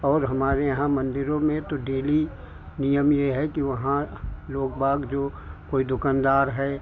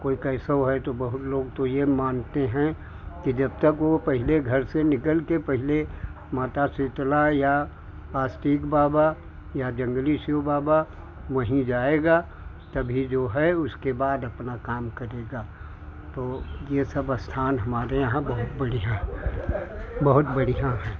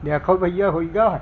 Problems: background conversations at intervals